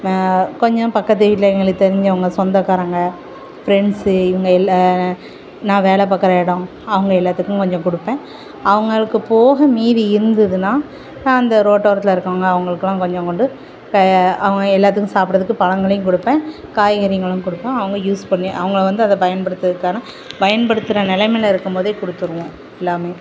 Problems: constant background noise